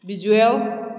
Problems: none marked